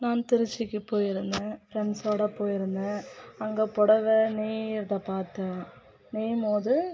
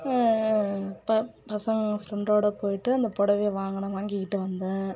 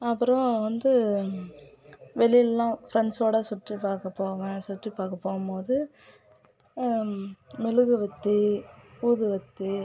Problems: background conversations at intervals